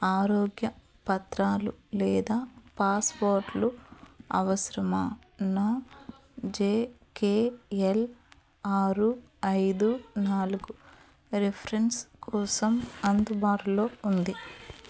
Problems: background sounds at intervals, background conversations at intervals